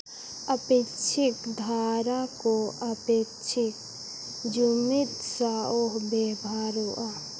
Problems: constant background noise